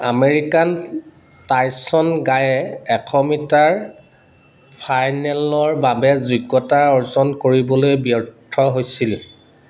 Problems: none marked